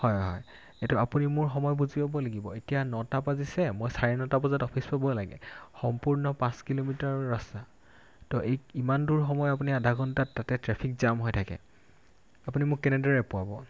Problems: none marked